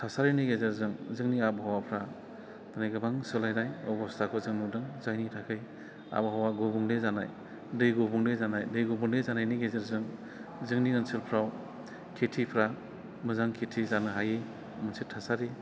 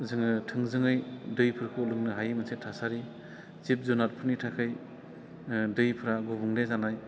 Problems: none marked